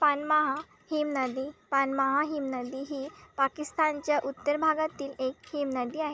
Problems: none marked